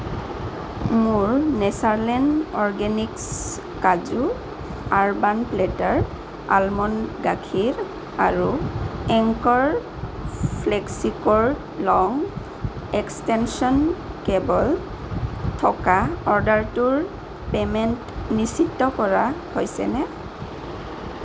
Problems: constant background noise